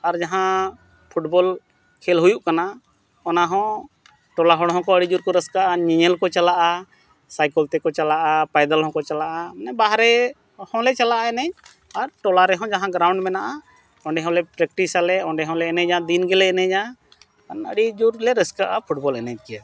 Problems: background sounds at intervals